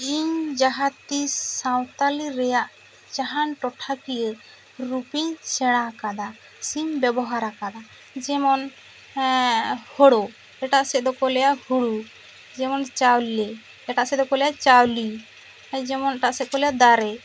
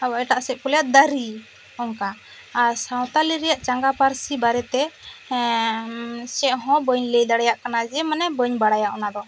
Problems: constant background noise